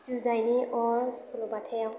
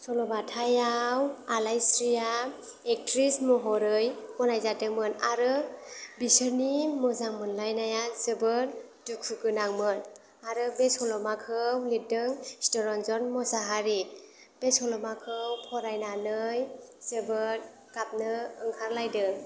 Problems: none marked